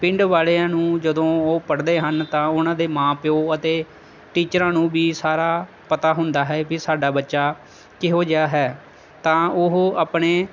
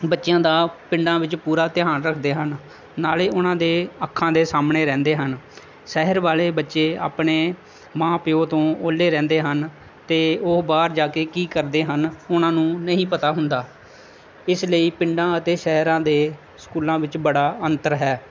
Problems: constant background noise